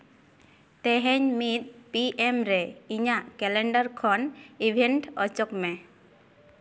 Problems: none marked